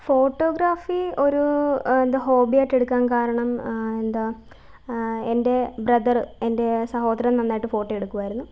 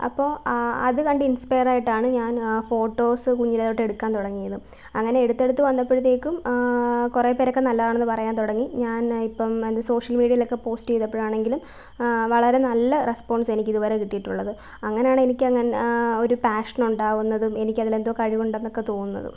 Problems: none marked